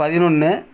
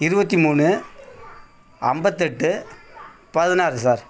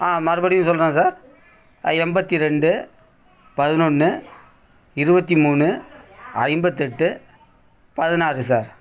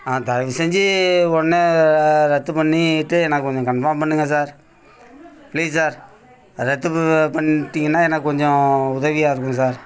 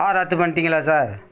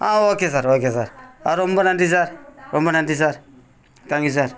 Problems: none marked